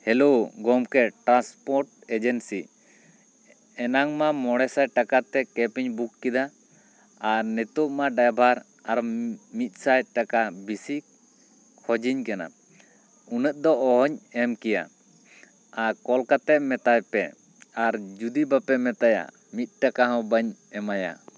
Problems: none marked